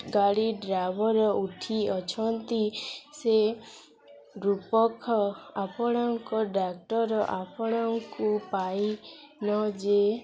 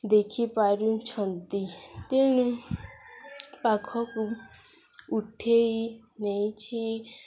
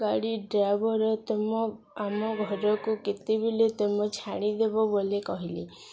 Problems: constant background noise, continuous background conversations